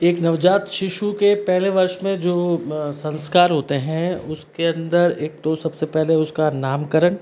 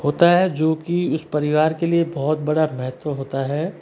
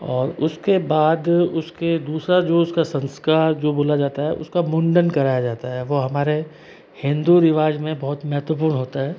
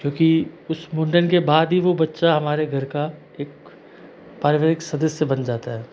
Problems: constant background noise